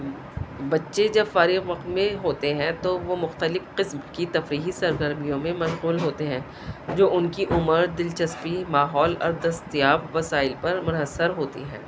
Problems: constant background noise, low volume